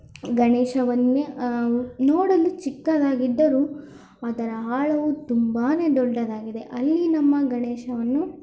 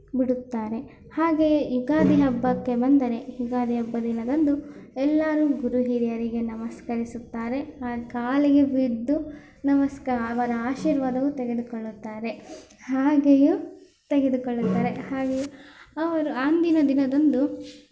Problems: background sounds at intervals